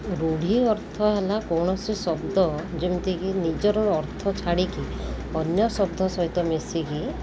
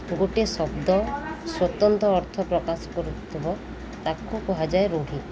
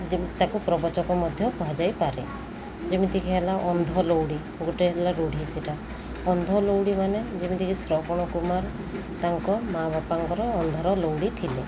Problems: constant background noise